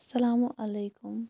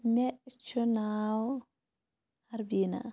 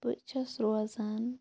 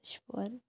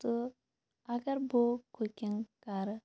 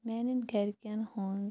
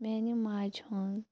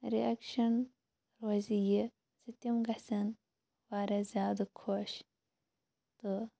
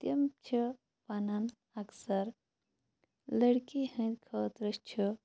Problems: low volume